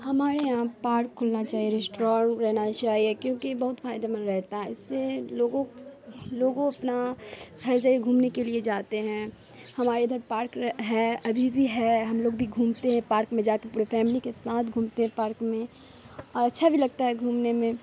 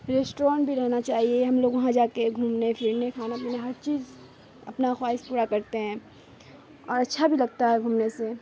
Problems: constant background noise